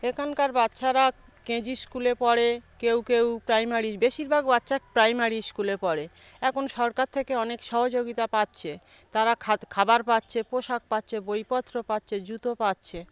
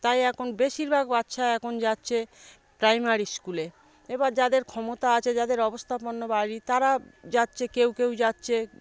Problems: none marked